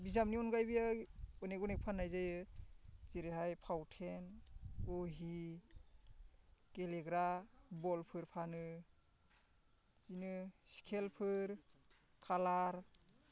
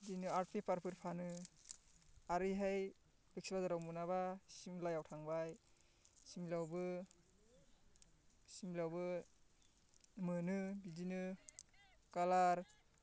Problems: constant background noise